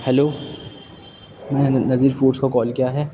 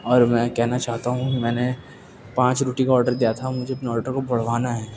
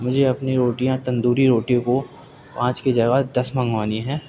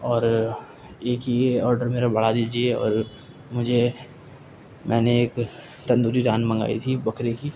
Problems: constant background noise